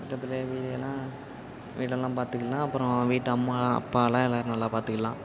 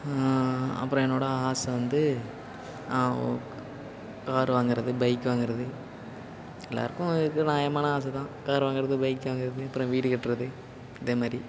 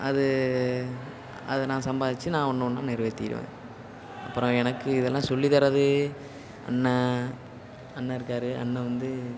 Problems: constant background noise